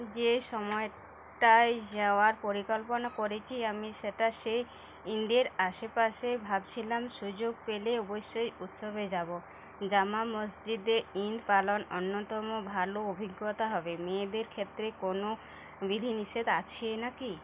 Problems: constant background noise, background conversations at intervals